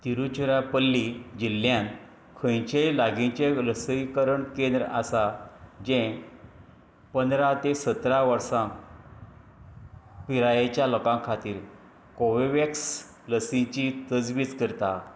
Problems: none marked